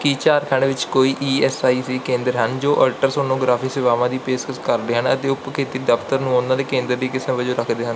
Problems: background sounds at intervals